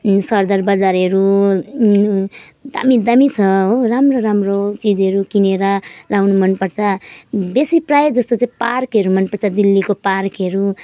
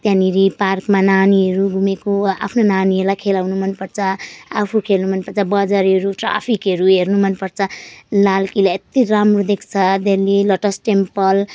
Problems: none marked